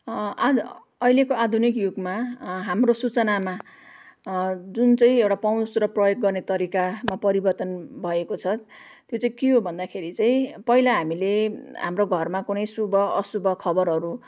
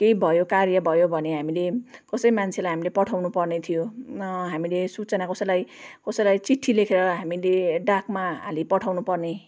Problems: none marked